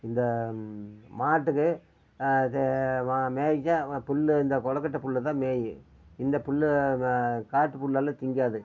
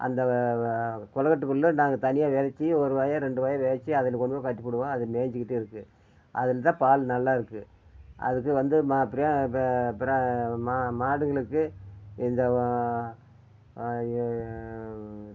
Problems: none marked